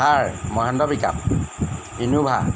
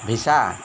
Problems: constant background noise